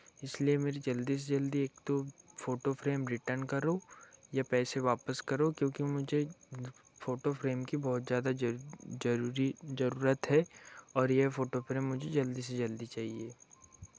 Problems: none marked